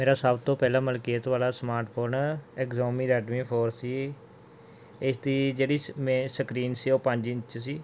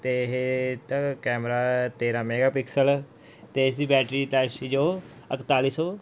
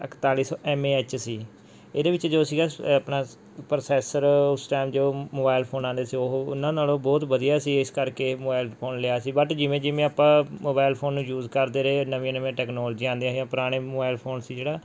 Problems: background sounds at intervals